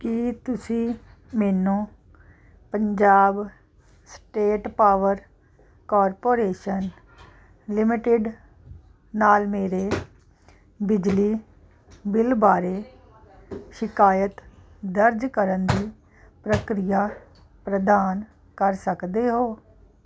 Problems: none marked